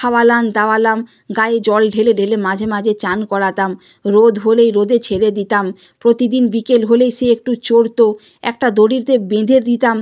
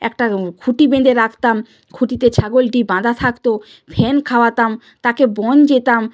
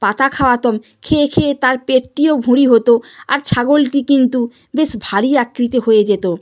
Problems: background sounds at intervals